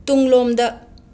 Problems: none marked